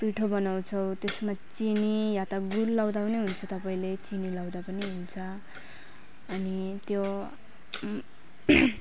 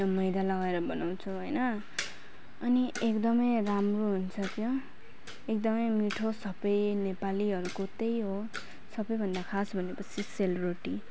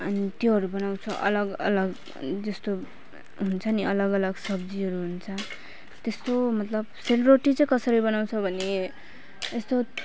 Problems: constant background noise